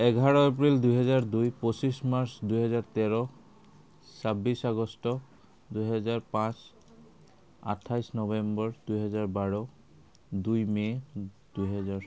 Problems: none marked